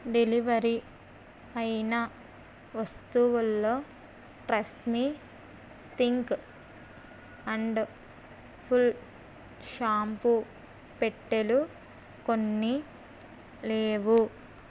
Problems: constant background noise